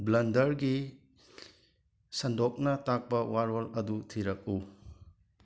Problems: background sounds at intervals